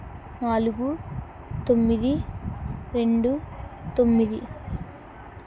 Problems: none marked